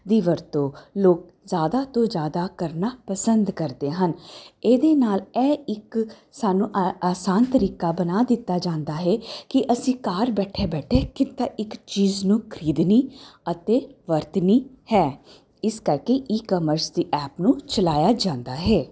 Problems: constant background noise